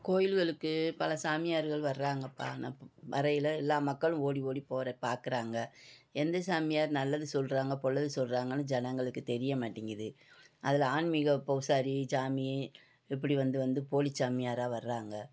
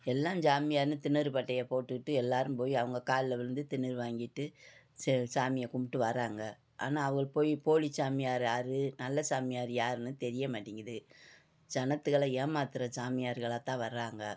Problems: none marked